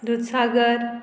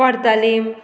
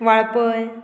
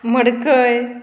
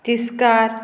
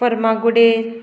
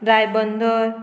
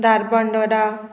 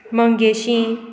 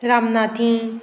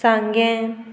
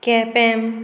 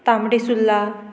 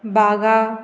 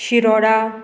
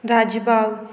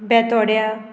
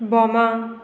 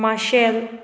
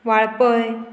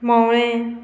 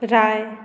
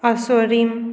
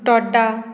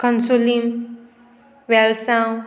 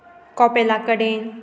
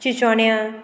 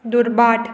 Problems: constant background noise